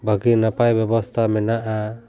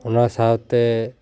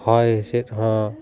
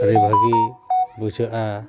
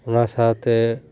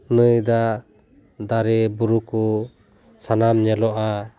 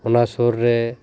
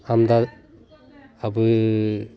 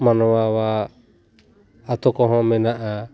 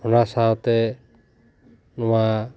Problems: background sounds at intervals, background conversations at intervals